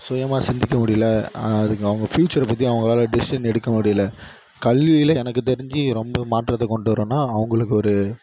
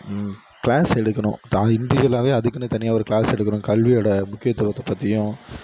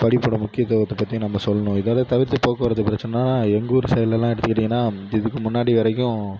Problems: none marked